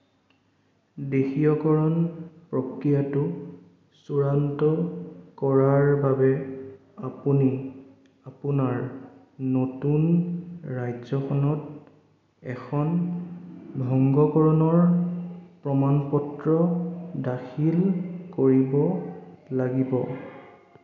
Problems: echo